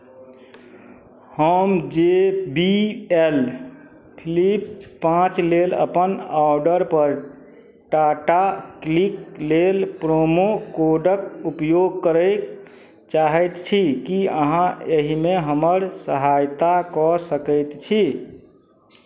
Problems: none marked